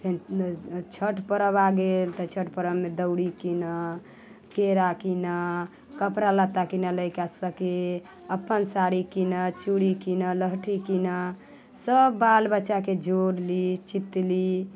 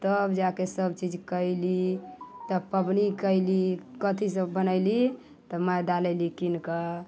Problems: none marked